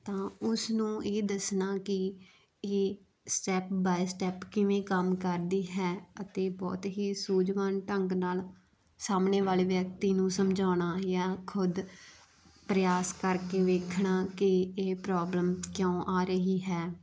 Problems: background sounds at intervals